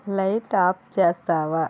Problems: none marked